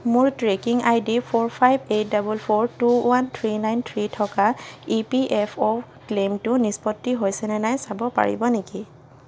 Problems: constant background noise